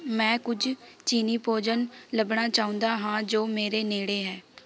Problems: continuous background conversations